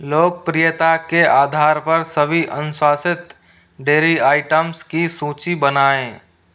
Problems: constant background noise